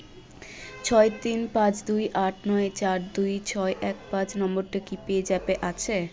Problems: none marked